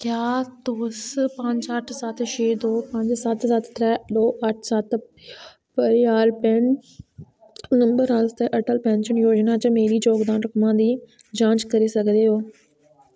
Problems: none marked